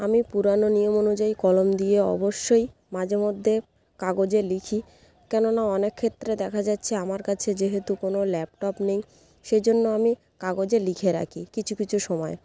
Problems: background sounds at intervals